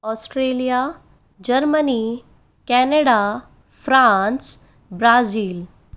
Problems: none marked